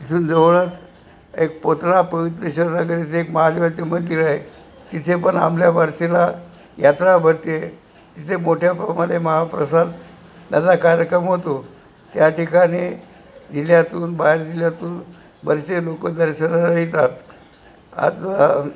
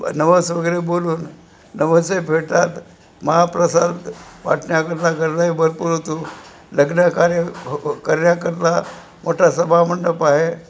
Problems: constant background noise